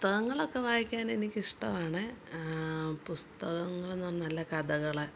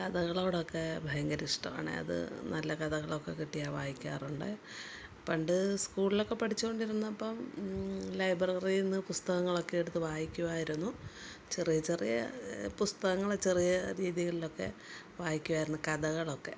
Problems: background sounds at intervals, low volume